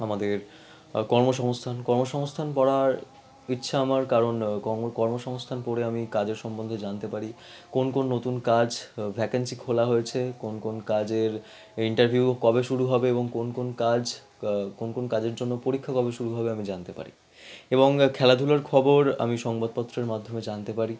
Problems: background conversations at intervals